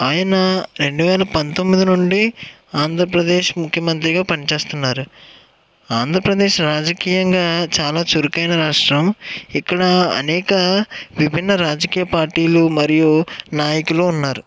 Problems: none marked